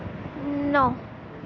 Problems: constant background noise